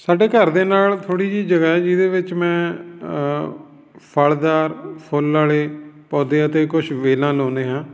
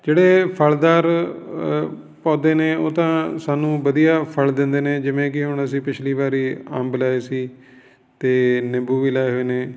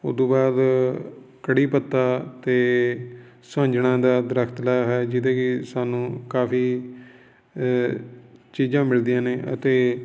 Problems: none marked